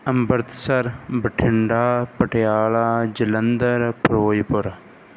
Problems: background sounds at intervals